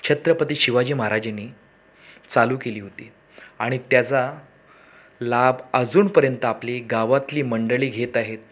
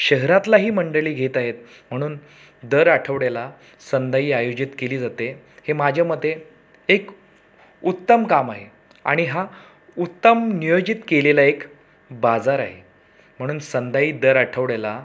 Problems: constant background noise